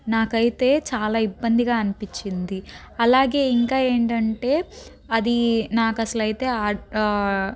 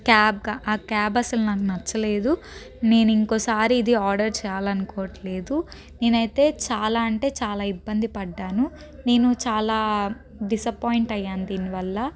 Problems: background sounds at intervals